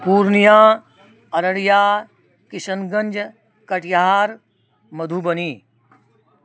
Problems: constant background noise